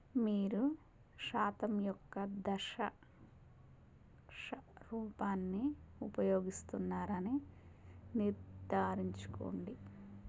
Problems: constant background noise, low volume